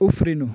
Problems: constant background noise